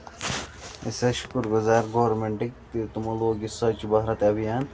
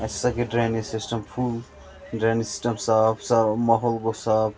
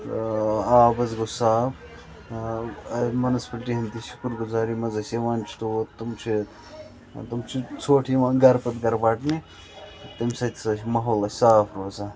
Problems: constant background noise